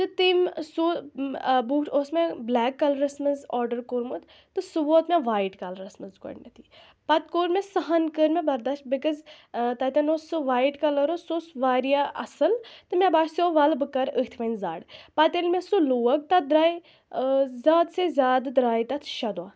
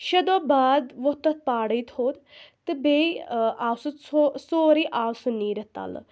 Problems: background sounds at intervals